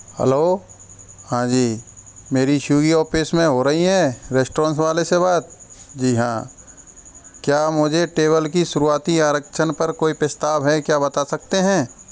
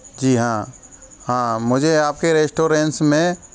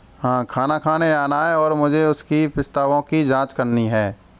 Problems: constant background noise, continuous background conversations